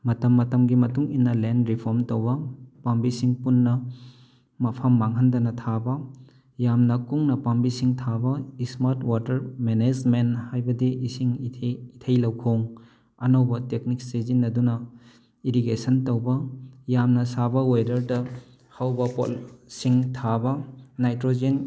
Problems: none marked